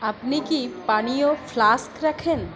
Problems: constant background noise, background conversations at intervals